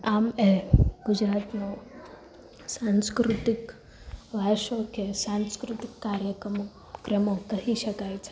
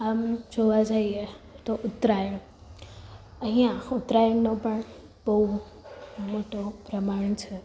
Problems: none marked